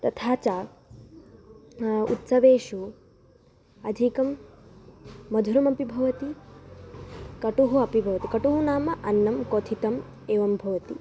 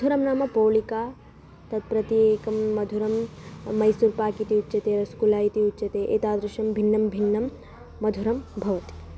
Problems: background sounds at intervals